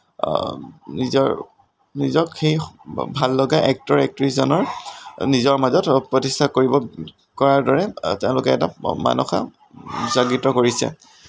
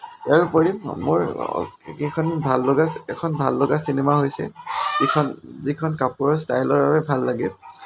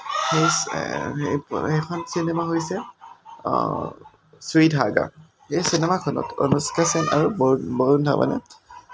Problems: none marked